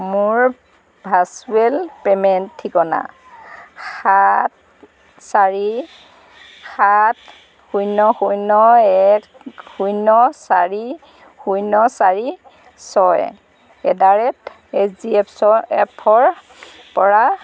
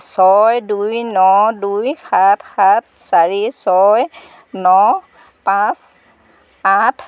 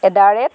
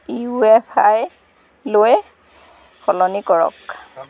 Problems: constant background noise, background conversations at intervals